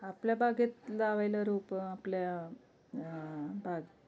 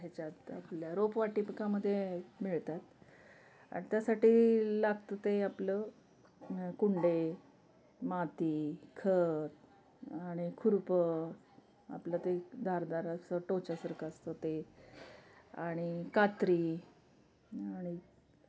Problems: background sounds at intervals, background conversations at intervals